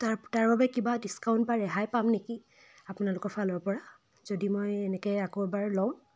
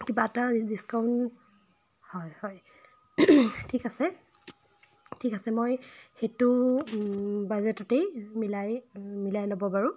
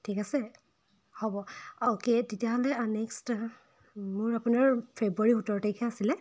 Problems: constant background noise